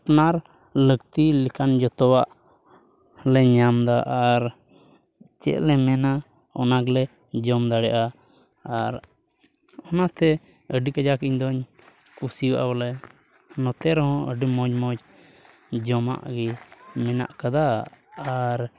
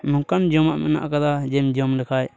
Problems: none marked